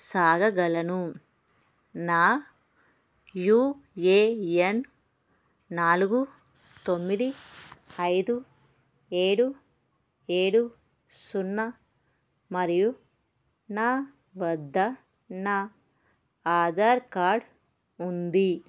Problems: background sounds at intervals